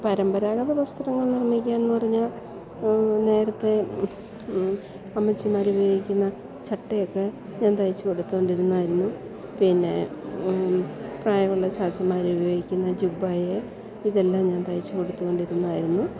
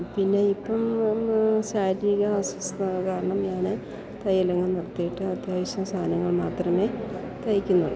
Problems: continuous background conversations